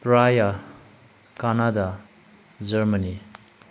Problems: low volume